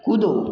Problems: none marked